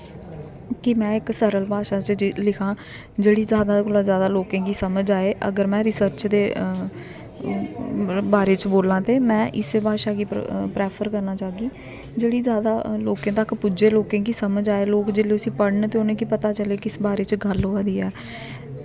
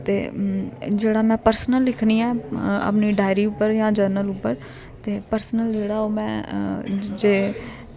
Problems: constant background noise